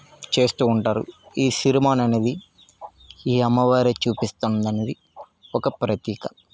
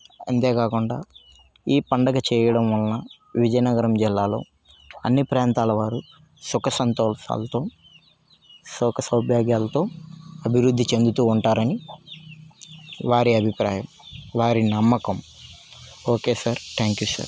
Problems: background sounds at intervals